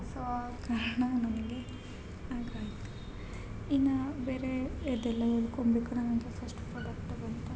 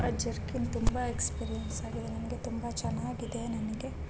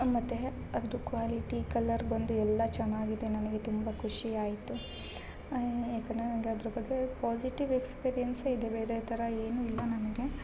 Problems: constant background noise